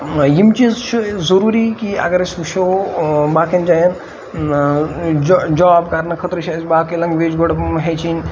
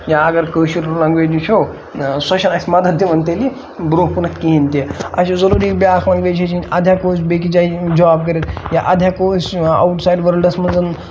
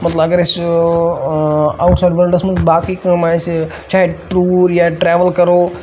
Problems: constant background noise